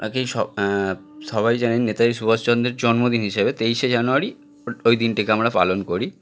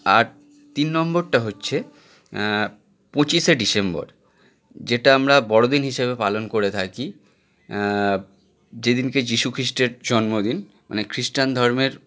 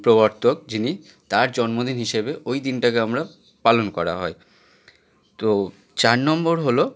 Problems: continuous background conversations